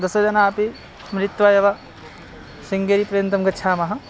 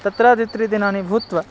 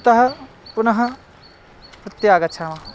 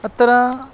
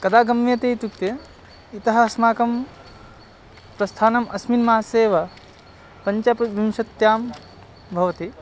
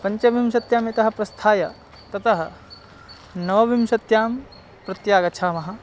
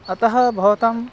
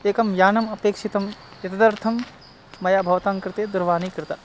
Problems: constant background noise